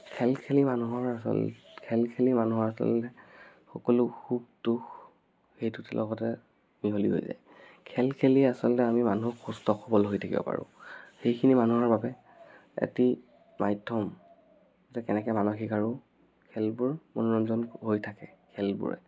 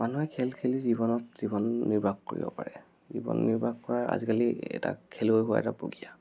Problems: background sounds at intervals